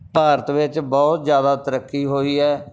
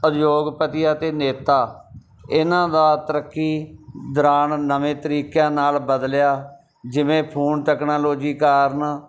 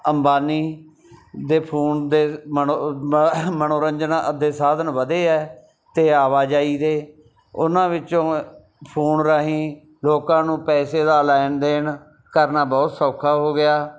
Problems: none marked